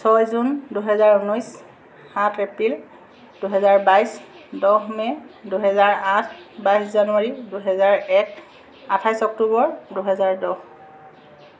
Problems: constant background noise